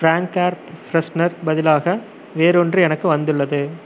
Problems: constant background noise